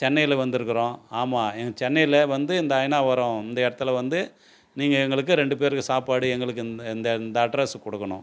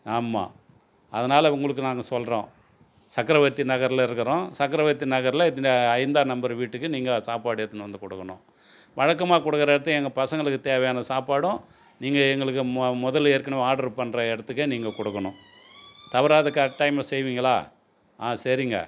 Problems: background sounds at intervals